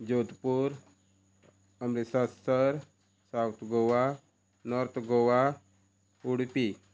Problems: constant background noise